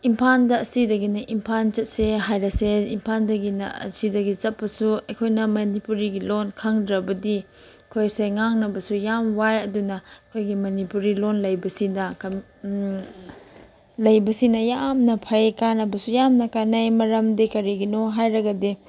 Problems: none marked